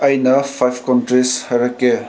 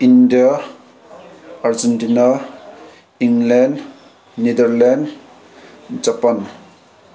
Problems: none marked